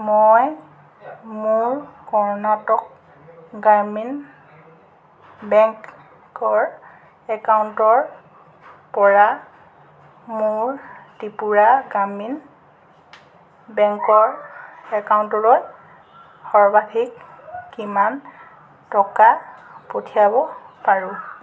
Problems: none marked